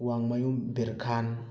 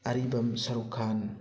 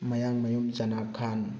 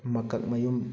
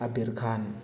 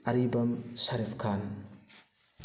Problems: background sounds at intervals, continuous background conversations